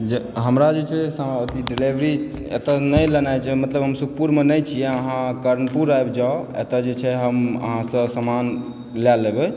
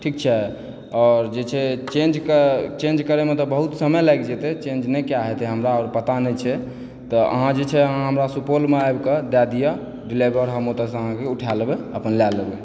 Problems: background sounds at intervals